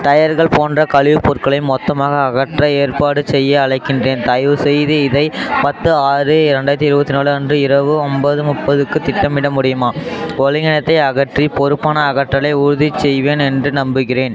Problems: continuous background conversations